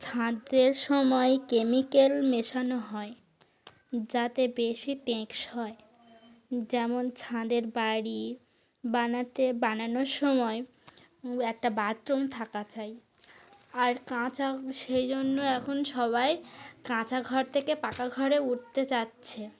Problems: constant background noise